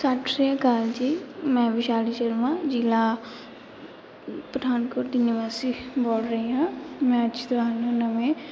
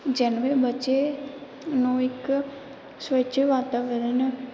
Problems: background sounds at intervals